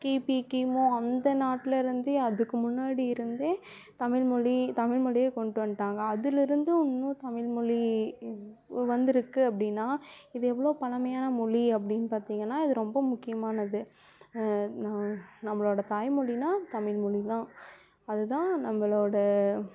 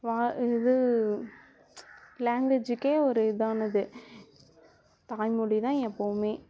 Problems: background sounds at intervals, background conversations at intervals